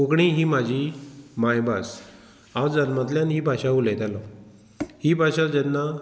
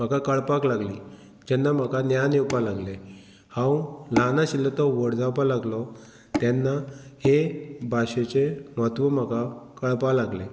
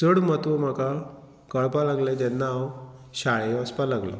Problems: none marked